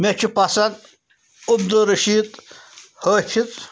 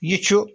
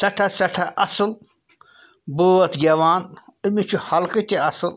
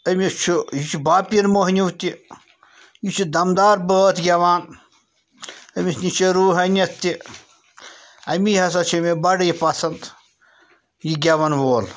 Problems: background sounds at intervals